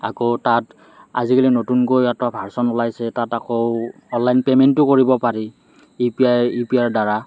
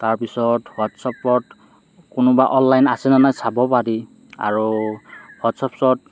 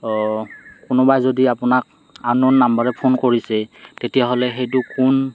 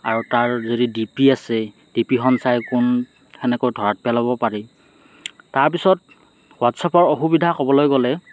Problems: none marked